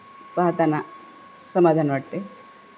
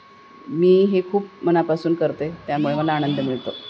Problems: constant background noise, continuous background conversations